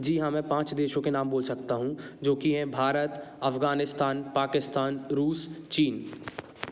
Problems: background sounds at intervals